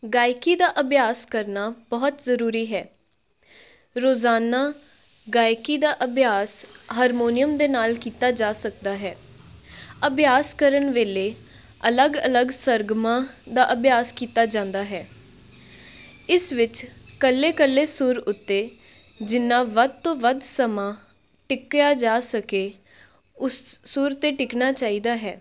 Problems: background sounds at intervals